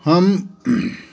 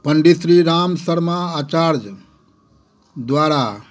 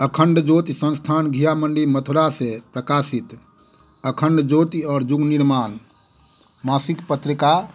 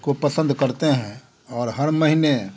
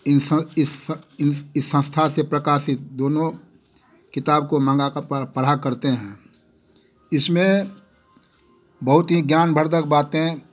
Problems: none marked